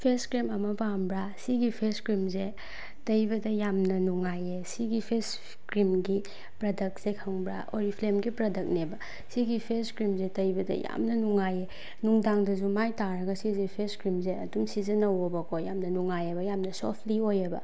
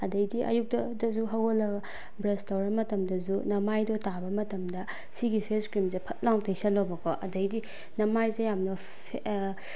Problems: background sounds at intervals